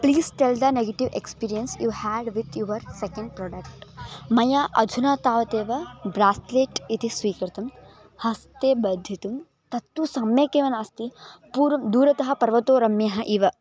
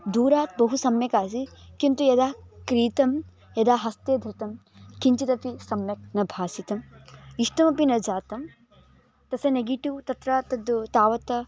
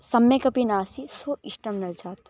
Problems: background sounds at intervals